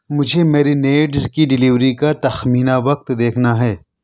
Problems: none marked